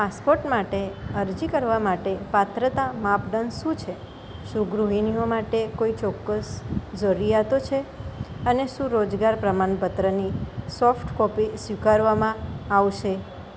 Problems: none marked